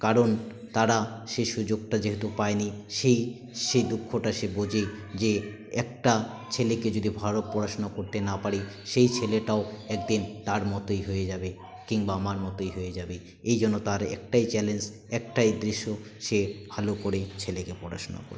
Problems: continuous background conversations